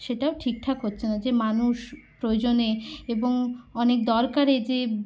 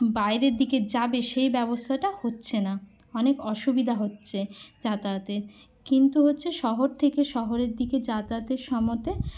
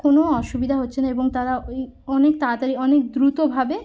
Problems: constant background noise